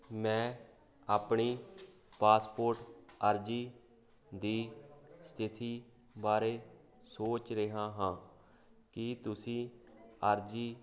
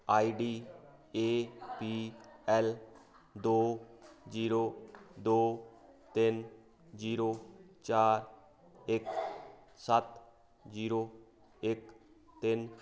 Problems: constant background noise